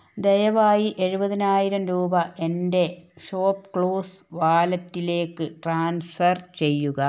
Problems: none marked